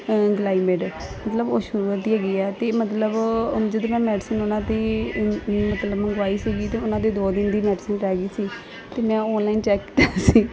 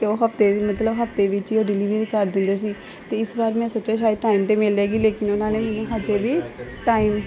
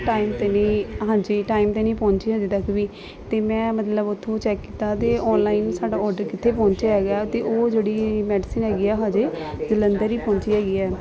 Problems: constant background noise, continuous background conversations